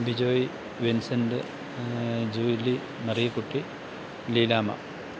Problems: constant background noise, low volume